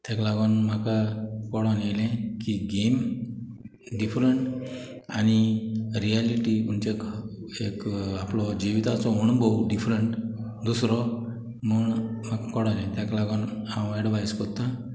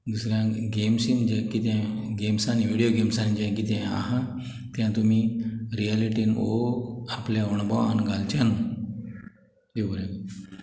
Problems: background sounds at intervals, background conversations at intervals